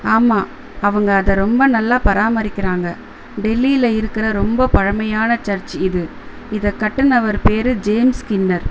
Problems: constant background noise